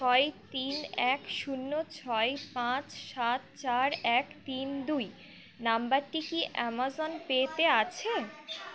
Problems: background sounds at intervals, background conversations at intervals